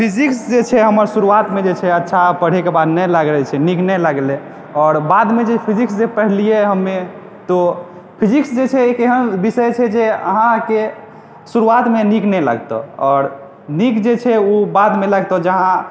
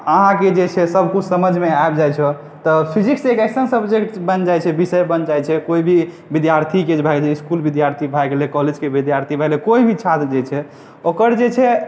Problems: background sounds at intervals